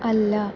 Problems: constant background noise, low volume